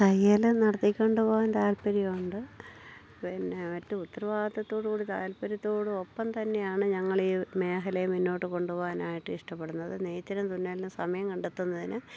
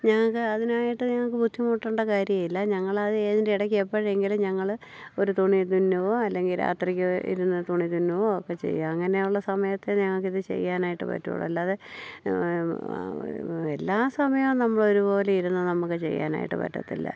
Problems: low volume